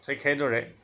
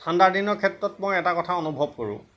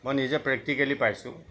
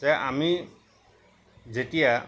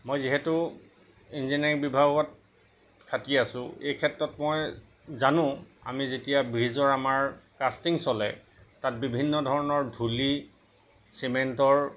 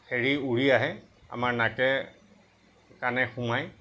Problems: none marked